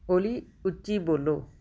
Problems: background conversations at intervals